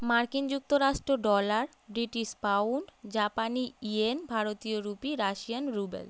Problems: none marked